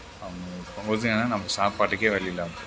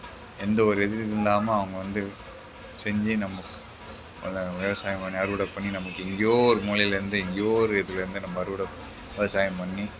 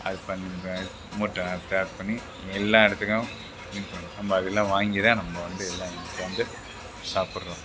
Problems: background sounds at intervals